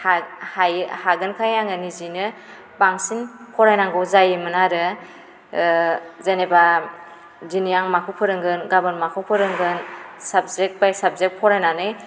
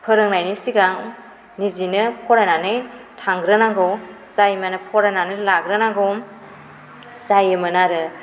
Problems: constant background noise